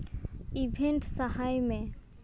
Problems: background sounds at intervals